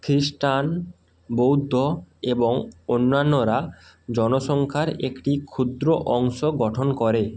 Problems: constant background noise